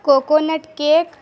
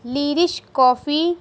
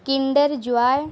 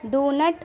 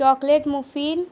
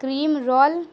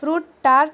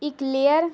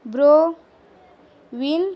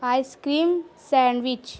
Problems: constant background noise